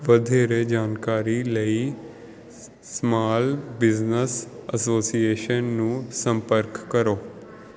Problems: none marked